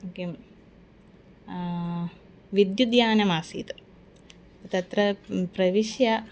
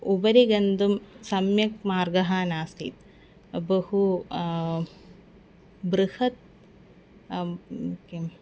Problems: background sounds at intervals, background conversations at intervals